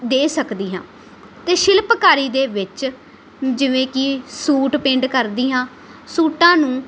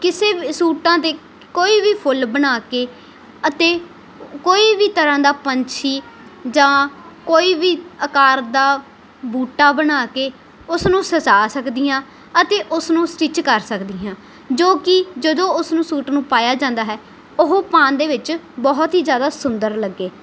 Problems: none marked